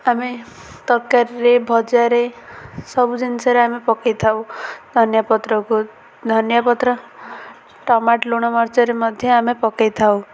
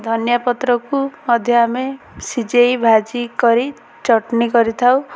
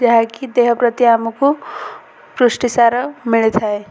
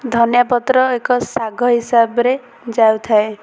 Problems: constant background noise, continuous background conversations